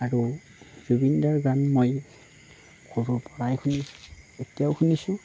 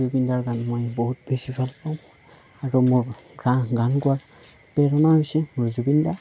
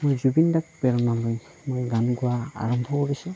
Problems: none marked